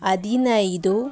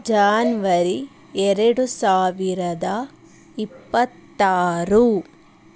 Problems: none marked